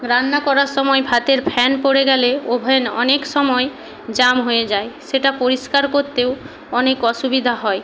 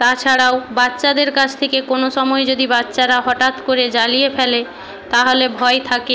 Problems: background conversations at intervals